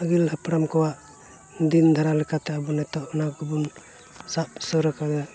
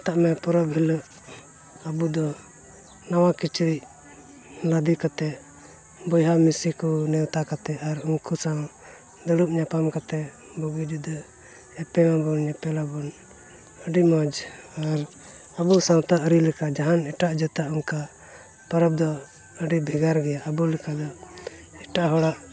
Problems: constant background noise